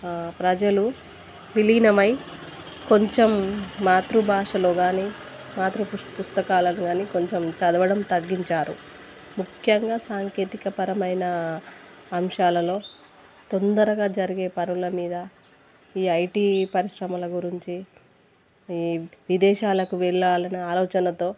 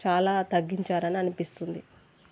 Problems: constant background noise